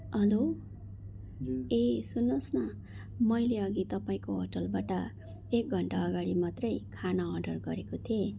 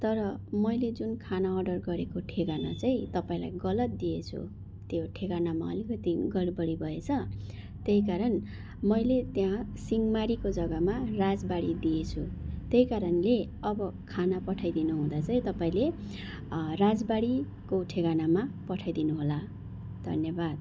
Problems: constant background noise